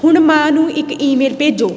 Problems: constant background noise